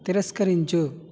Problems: constant background noise